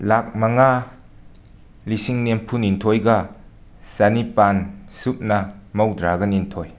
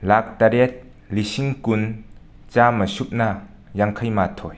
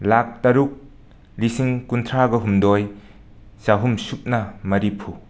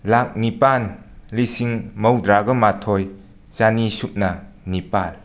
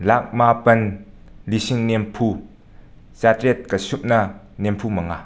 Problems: none marked